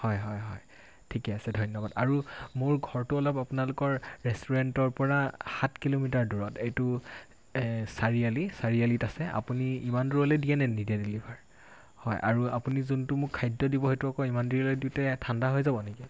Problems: constant background noise